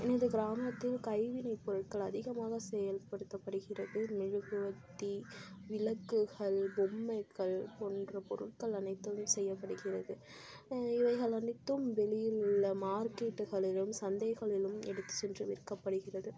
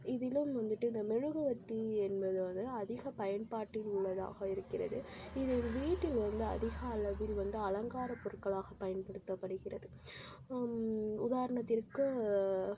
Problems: constant background noise, low volume